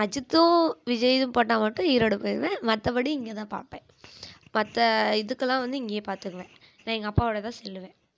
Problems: none marked